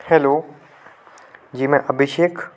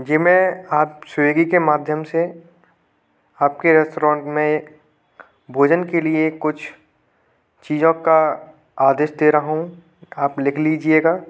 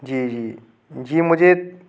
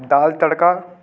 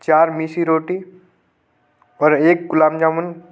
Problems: constant background noise